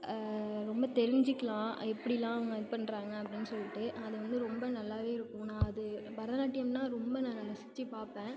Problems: background sounds at intervals